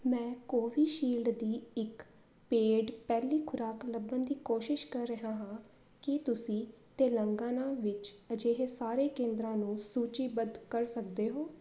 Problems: constant background noise